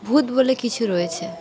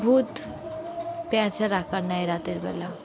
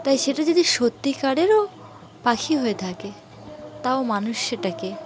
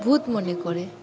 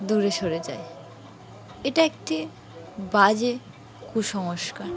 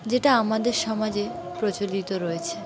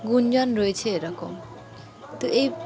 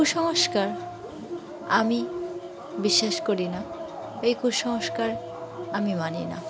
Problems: constant background noise, continuous background conversations